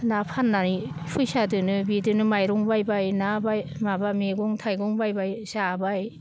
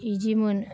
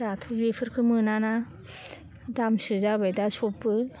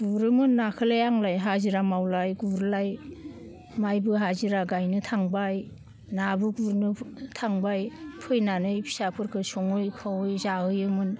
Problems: none marked